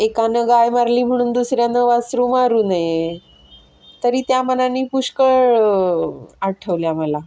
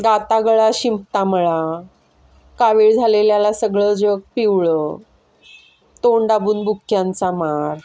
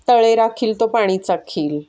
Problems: constant background noise, background conversations at intervals